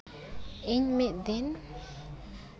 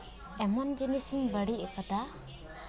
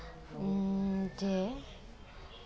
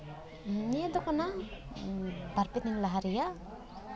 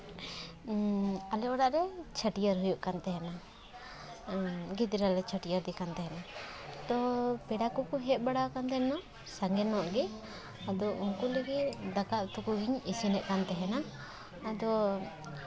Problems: background sounds at intervals